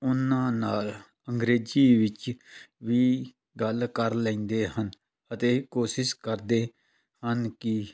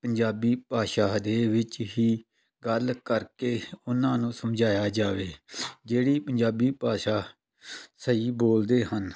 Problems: none marked